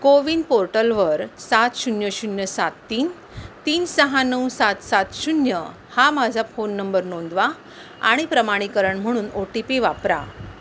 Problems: constant background noise